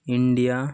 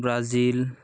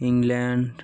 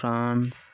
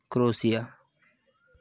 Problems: background sounds at intervals